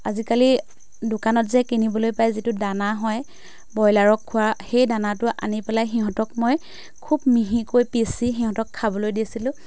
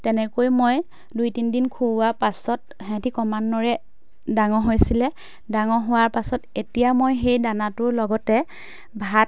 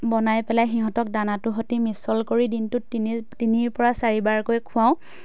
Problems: background sounds at intervals